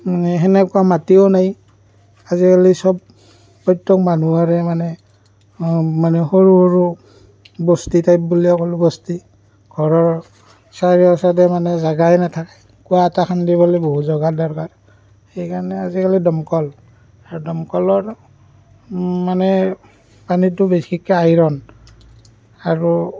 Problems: constant background noise